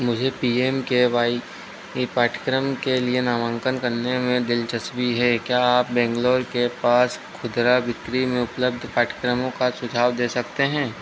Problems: none marked